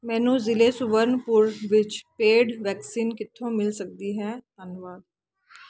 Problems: constant background noise